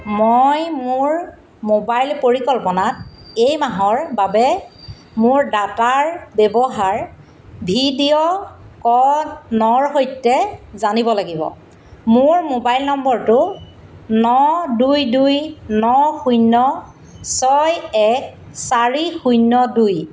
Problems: constant background noise